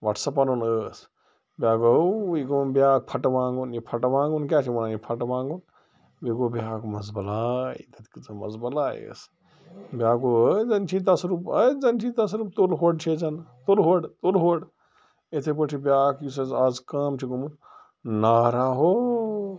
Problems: constant background noise